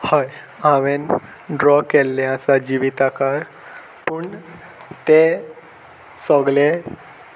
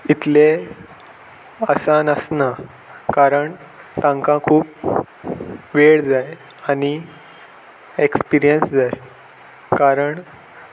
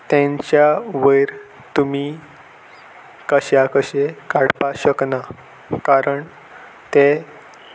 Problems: none marked